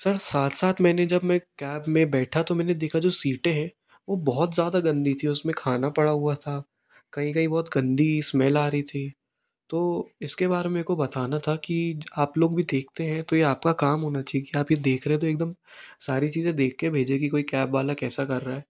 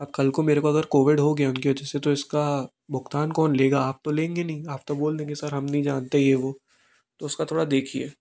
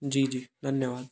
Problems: none marked